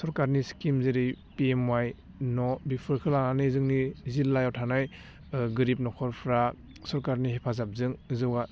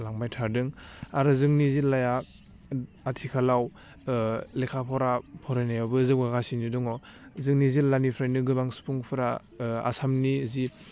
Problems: low volume